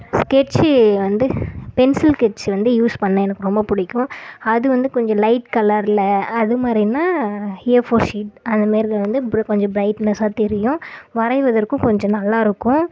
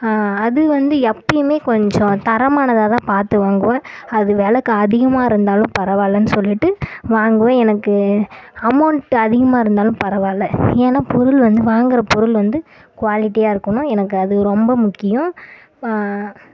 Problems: constant background noise